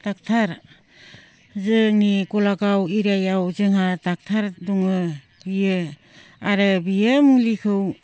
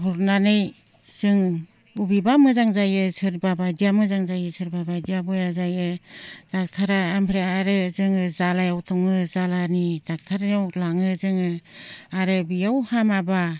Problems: low volume